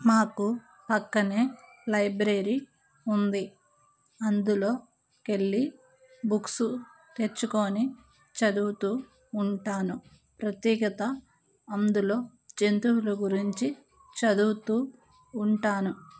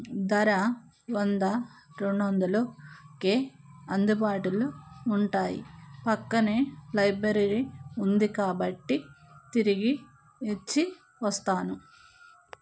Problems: none marked